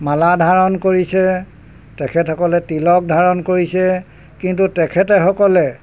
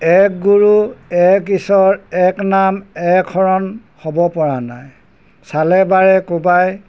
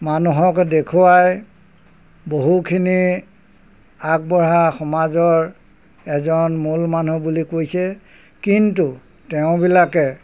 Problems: none marked